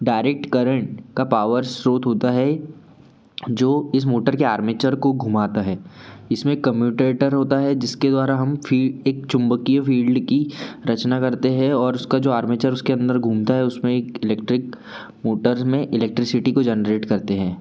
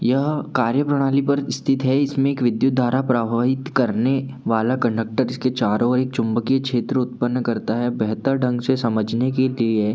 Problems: none marked